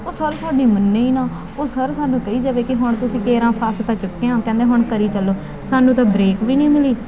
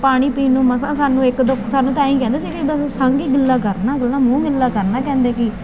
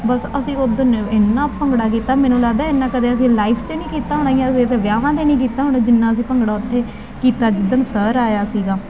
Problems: constant background noise